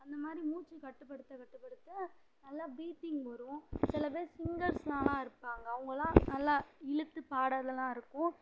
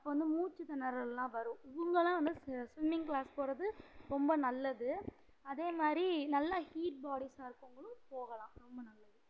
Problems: low volume